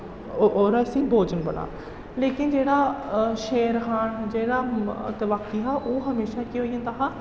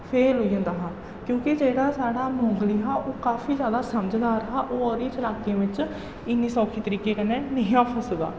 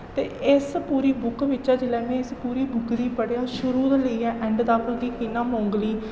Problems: echo, low volume